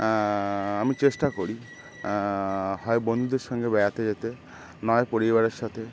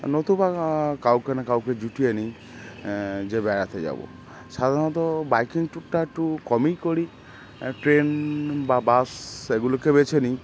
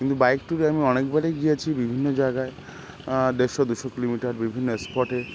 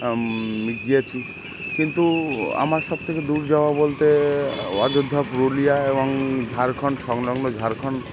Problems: constant background noise